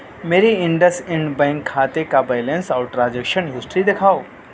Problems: constant background noise